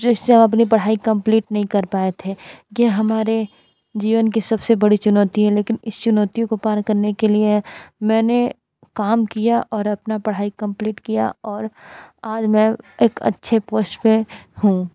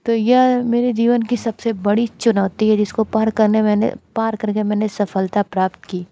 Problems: constant background noise